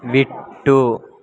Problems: background conversations at intervals